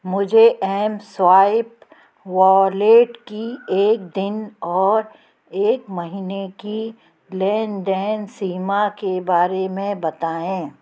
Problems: background sounds at intervals, background conversations at intervals